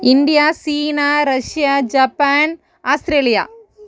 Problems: continuous background conversations